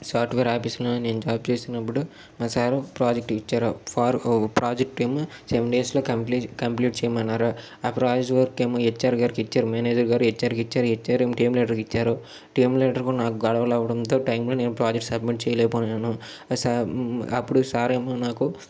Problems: none marked